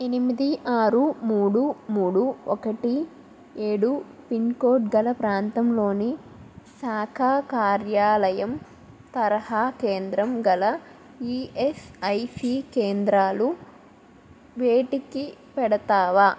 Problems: constant background noise